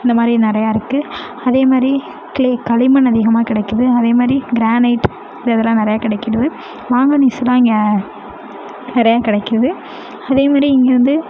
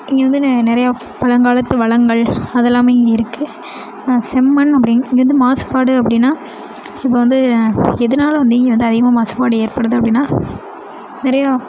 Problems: constant background noise